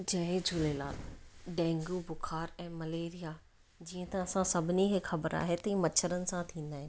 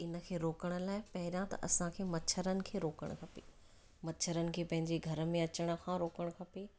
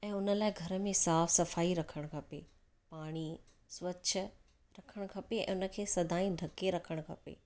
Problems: none marked